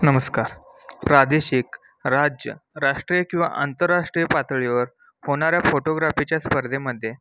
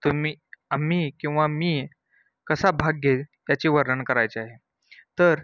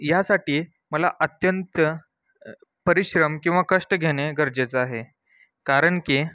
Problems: background sounds at intervals